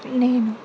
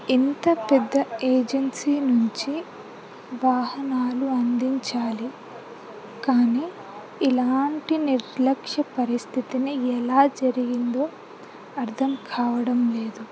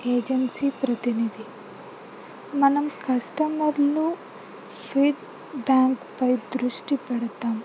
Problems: low volume